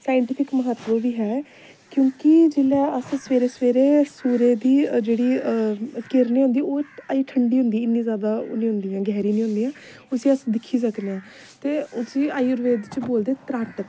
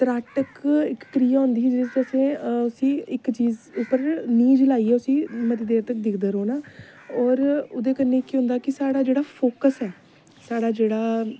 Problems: constant background noise